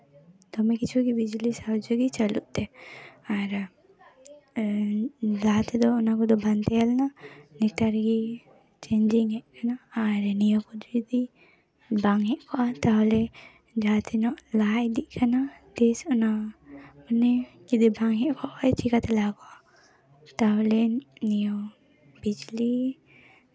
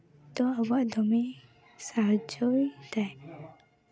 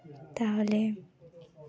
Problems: continuous background conversations